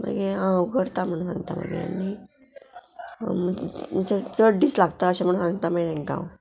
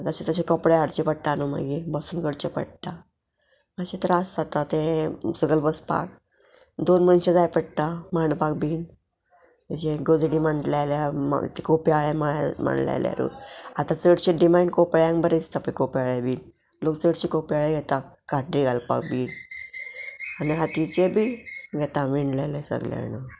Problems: background sounds at intervals